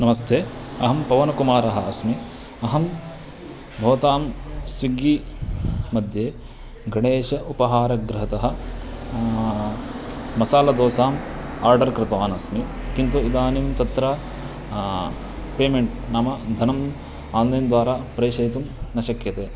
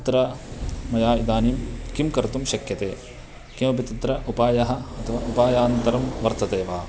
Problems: constant background noise